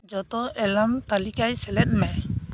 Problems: constant background noise